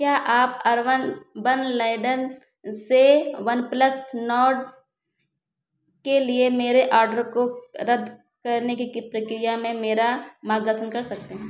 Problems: constant background noise